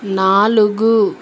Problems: constant background noise